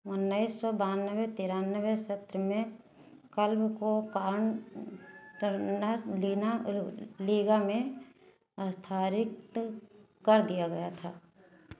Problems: constant background noise